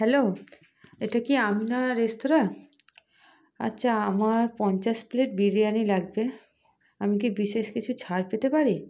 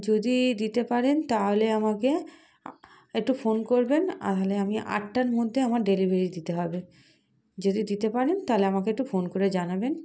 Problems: none marked